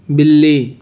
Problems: constant background noise